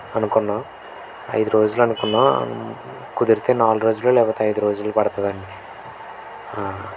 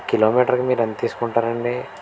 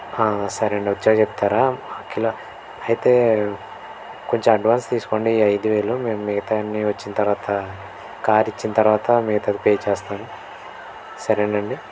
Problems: constant background noise